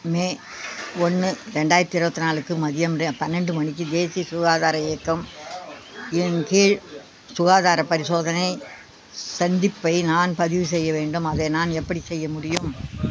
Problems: constant background noise